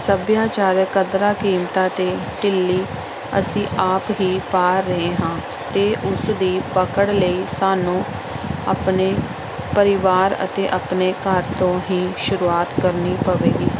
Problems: constant background noise